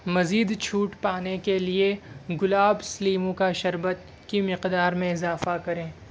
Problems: none marked